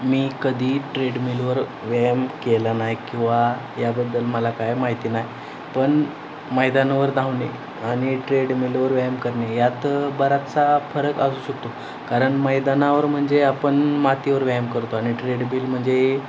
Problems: constant background noise